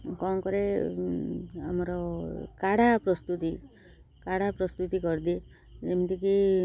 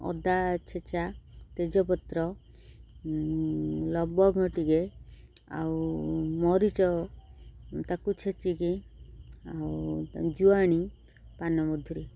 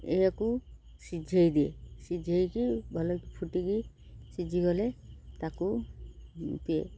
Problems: none marked